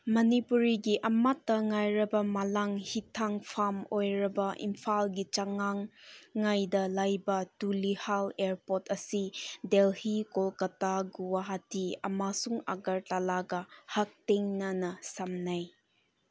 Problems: none marked